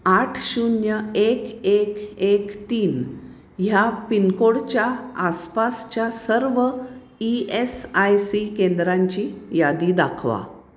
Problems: none marked